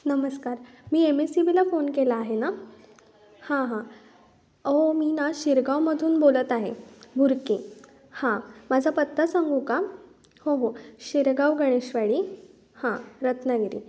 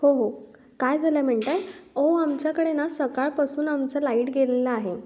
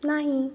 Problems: background sounds at intervals